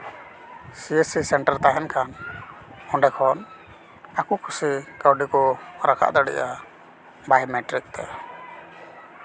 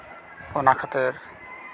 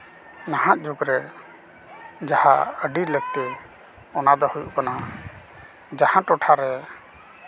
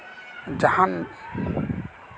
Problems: constant background noise, continuous background conversations